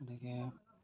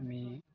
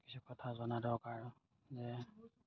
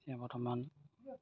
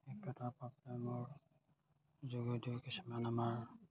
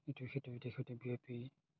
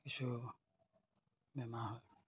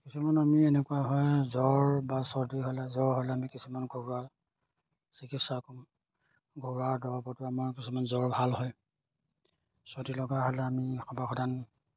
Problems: none marked